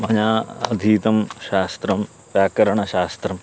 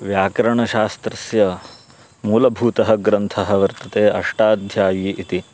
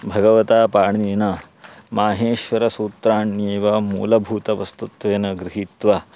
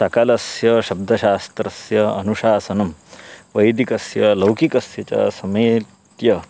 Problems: constant background noise